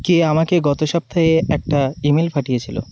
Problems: constant background noise